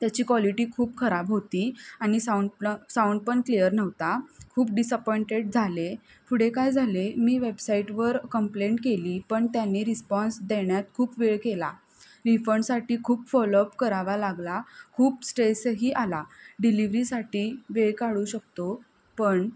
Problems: none marked